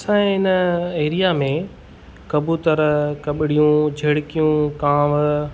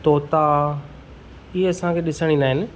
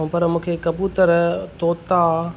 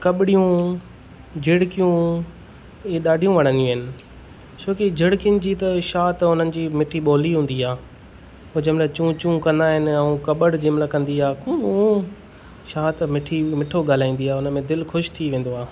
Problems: none marked